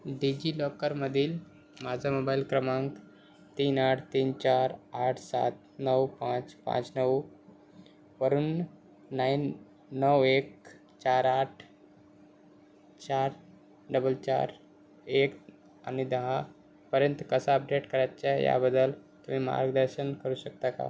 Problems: constant background noise